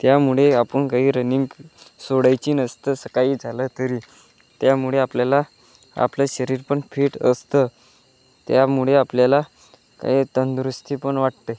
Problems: constant background noise, background conversations at intervals